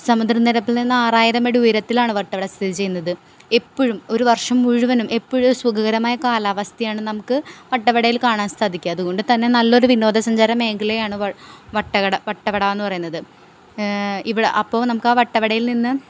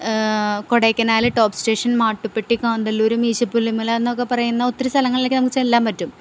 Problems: background sounds at intervals